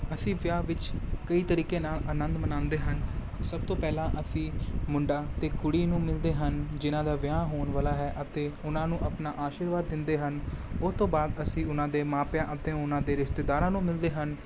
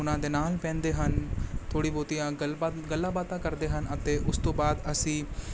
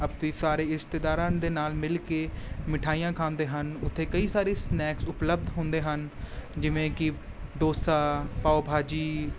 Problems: none marked